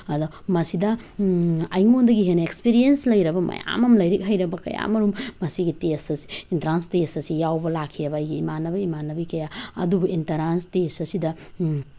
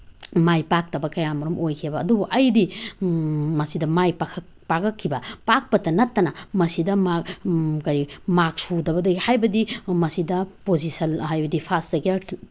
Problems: background sounds at intervals, background conversations at intervals